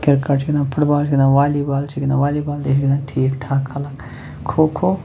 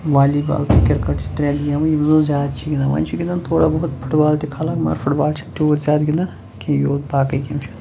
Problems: none marked